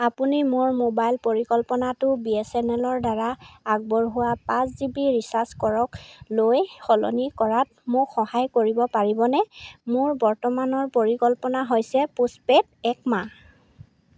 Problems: none marked